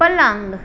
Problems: constant background noise